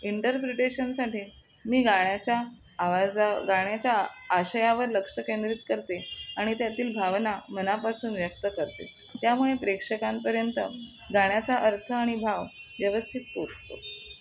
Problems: constant background noise, background conversations at intervals